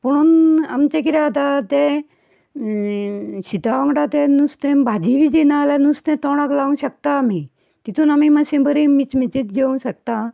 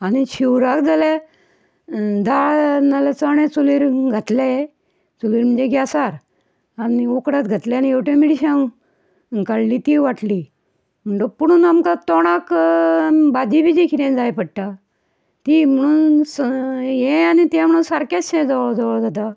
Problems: none marked